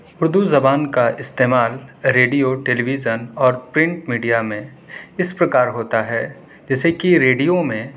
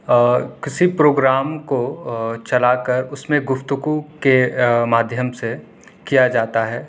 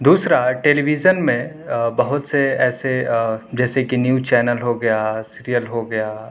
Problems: none marked